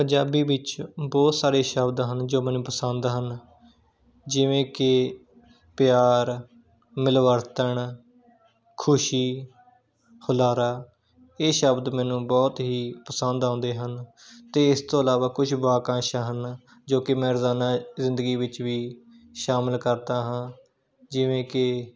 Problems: background sounds at intervals, background conversations at intervals